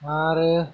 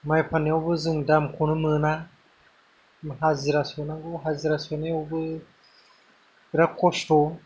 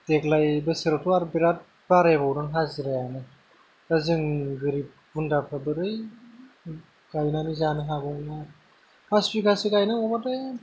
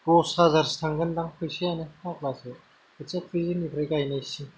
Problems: low volume